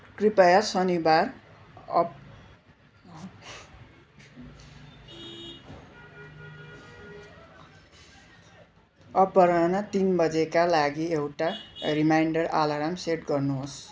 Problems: constant background noise, continuous background conversations